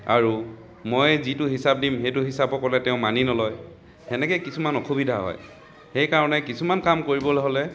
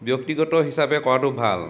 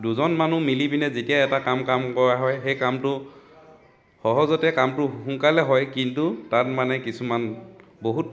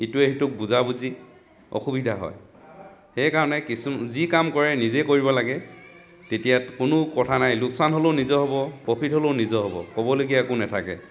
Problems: constant background noise